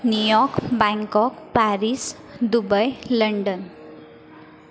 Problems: none marked